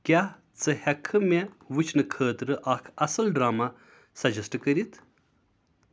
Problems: none marked